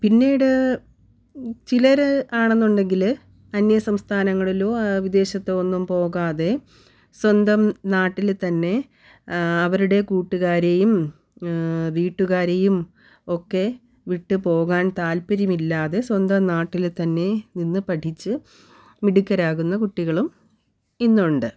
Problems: none marked